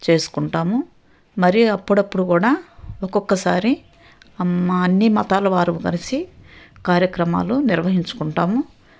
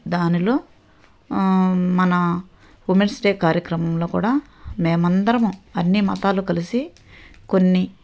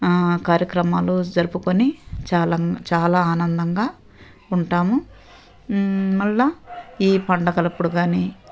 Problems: none marked